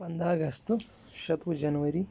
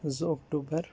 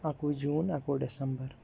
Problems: background sounds at intervals